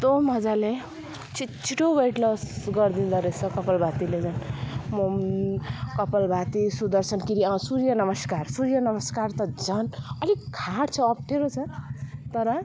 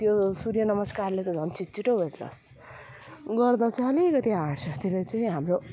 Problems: none marked